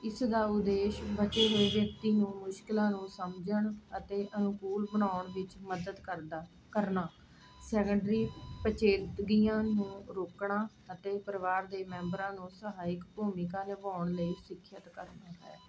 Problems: constant background noise